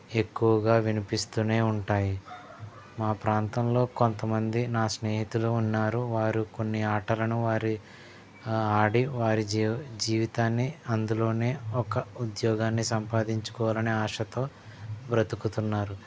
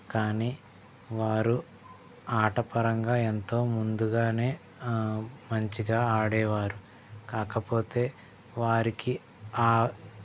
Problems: background sounds at intervals, background conversations at intervals